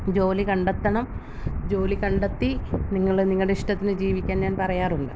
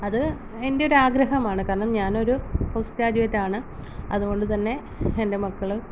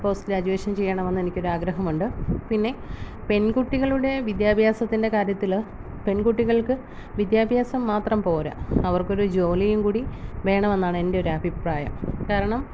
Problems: low volume